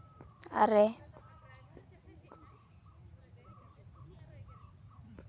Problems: background sounds at intervals, background conversations at intervals